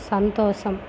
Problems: constant background noise